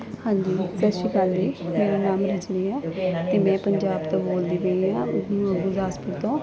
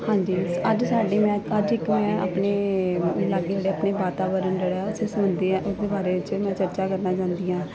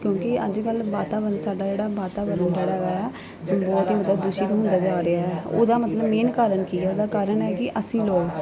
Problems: none marked